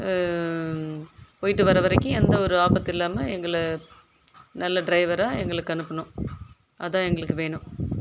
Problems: constant background noise